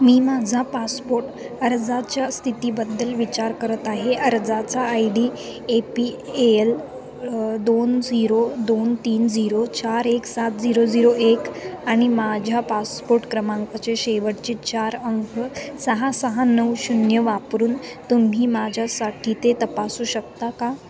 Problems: none marked